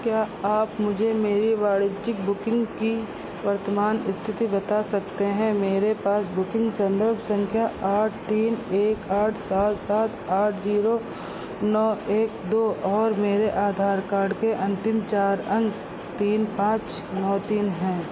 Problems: constant background noise